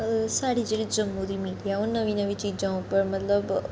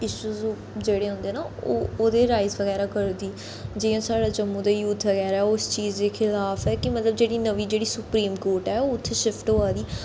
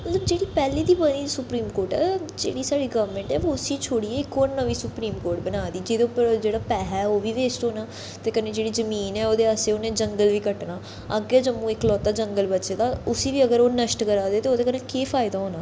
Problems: background sounds at intervals, echo